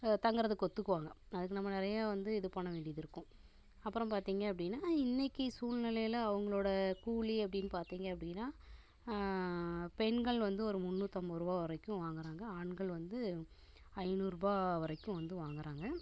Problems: constant background noise